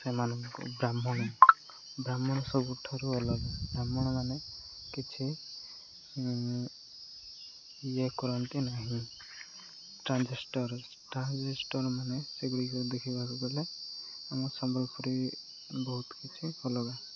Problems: none marked